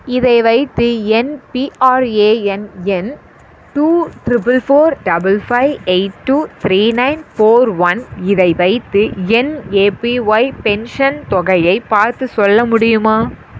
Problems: constant background noise